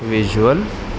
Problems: constant background noise